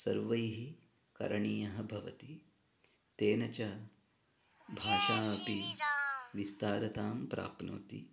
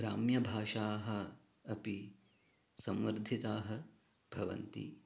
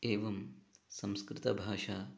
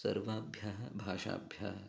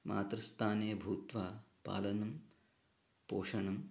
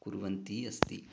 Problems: background conversations at intervals, low volume